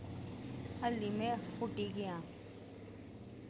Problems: low volume